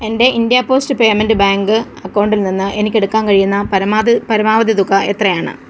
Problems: constant background noise